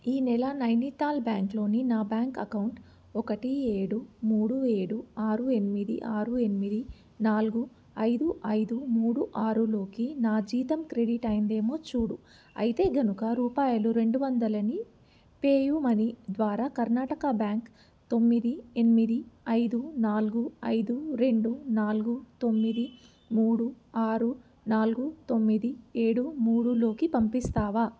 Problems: background sounds at intervals